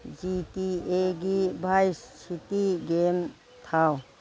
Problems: background sounds at intervals